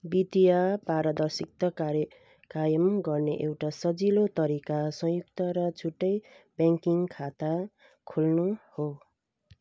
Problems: background sounds at intervals